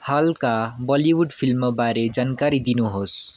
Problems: background conversations at intervals